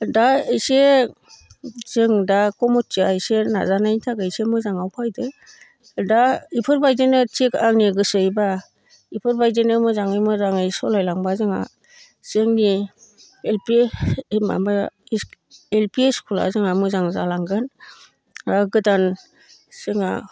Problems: constant background noise